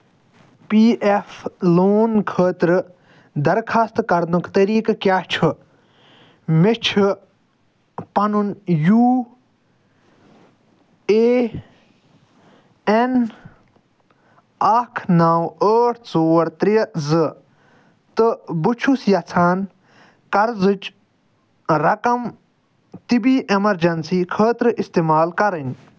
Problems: none marked